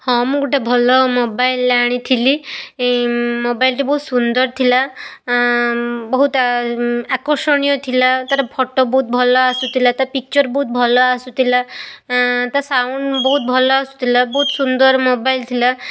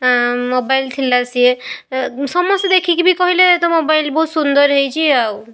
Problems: background sounds at intervals